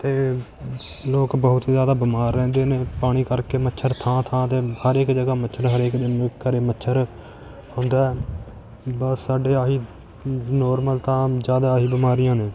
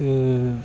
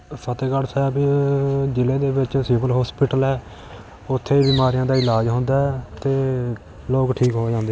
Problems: background sounds at intervals